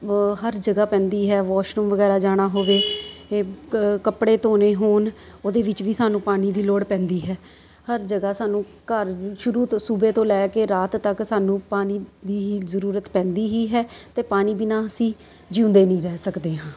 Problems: constant background noise